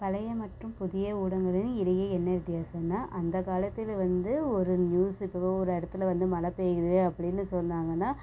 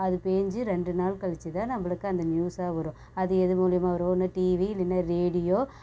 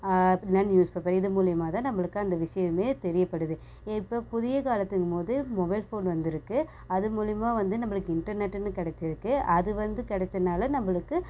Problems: constant background noise